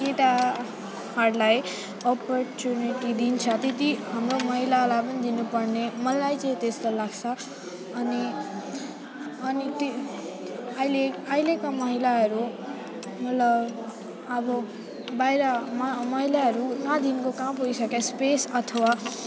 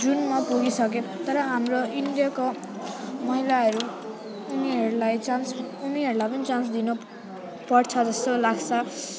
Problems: constant background noise